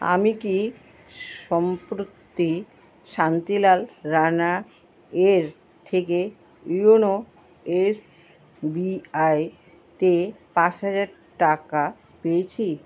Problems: none marked